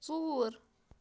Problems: constant background noise